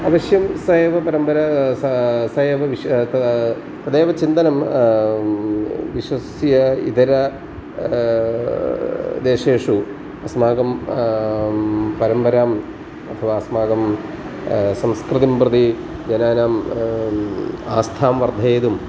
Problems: constant background noise